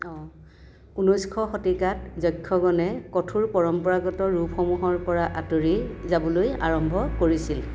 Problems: constant background noise